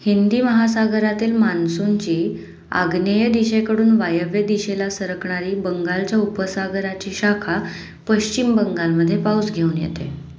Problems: background sounds at intervals